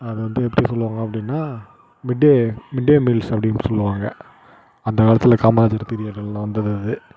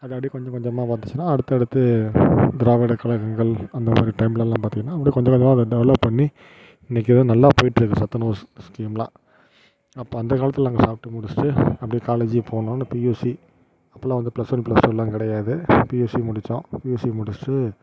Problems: constant background noise